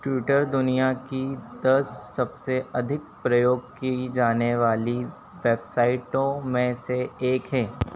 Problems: constant background noise